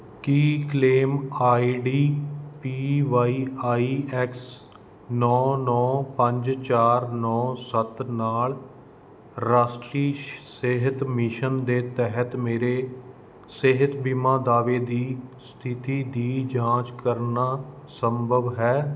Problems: none marked